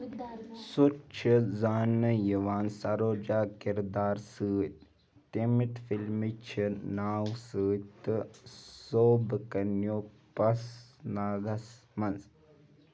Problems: background sounds at intervals